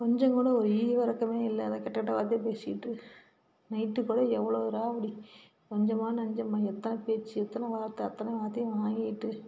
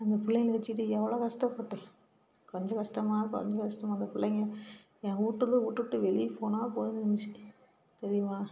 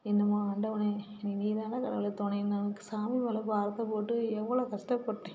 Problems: background sounds at intervals, background conversations at intervals